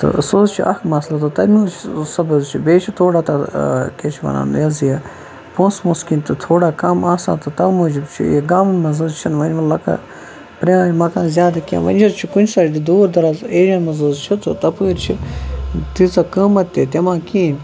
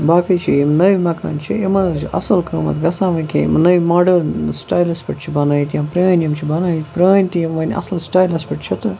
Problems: constant background noise